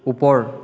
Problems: echo